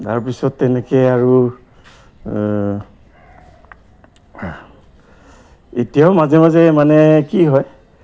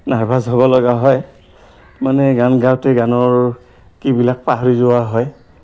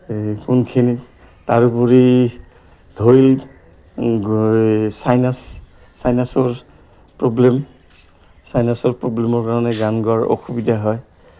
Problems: background sounds at intervals